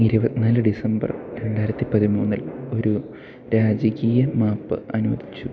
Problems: constant background noise